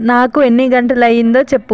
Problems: none marked